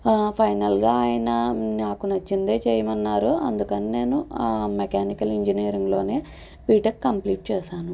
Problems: none marked